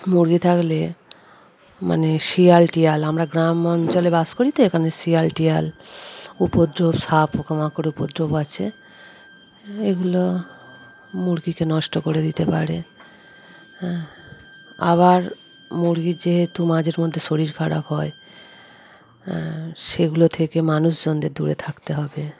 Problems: constant background noise, background conversations at intervals